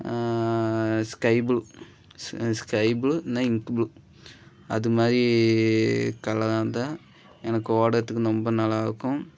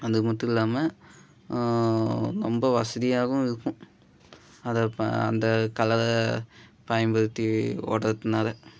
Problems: none marked